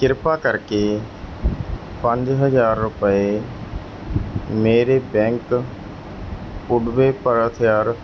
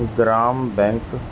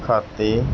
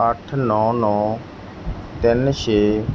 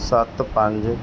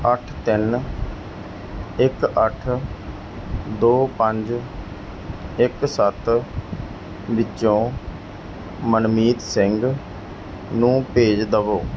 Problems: constant background noise